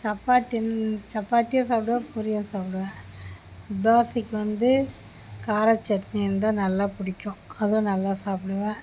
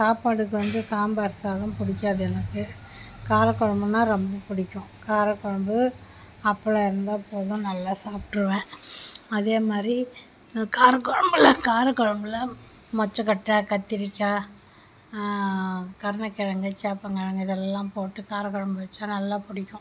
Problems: background sounds at intervals